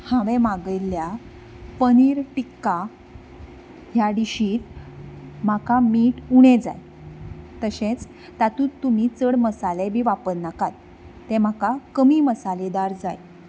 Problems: none marked